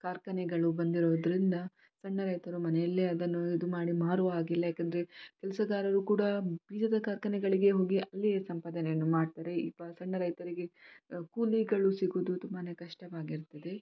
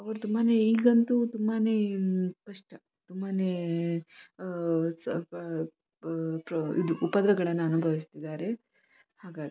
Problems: none marked